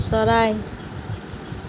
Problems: constant background noise